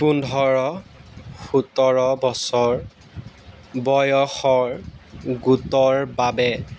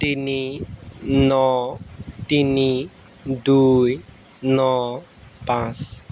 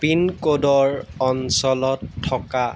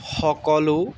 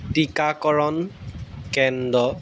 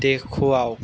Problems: background sounds at intervals